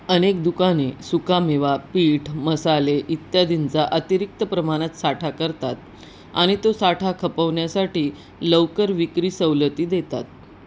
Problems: none marked